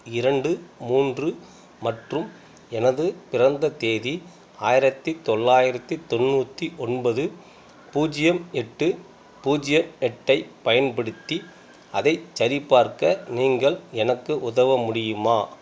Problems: background sounds at intervals